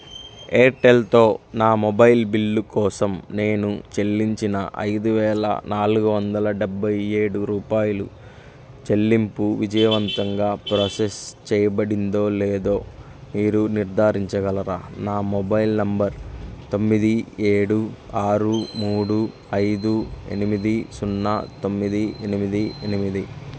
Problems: none marked